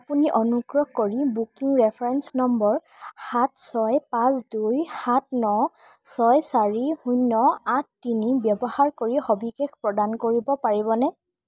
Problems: none marked